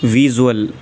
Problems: constant background noise